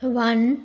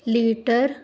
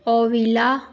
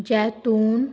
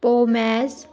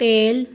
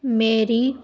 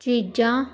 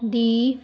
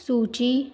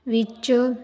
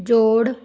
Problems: none marked